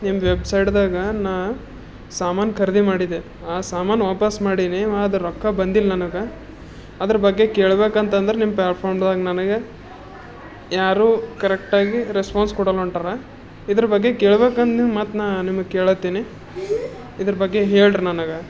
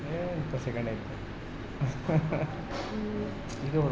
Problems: background sounds at intervals